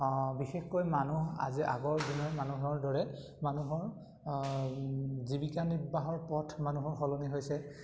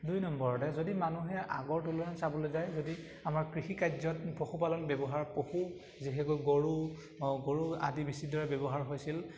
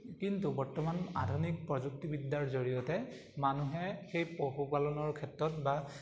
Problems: constant background noise